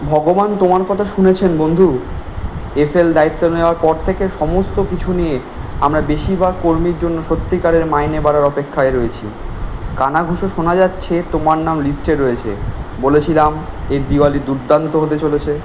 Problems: constant background noise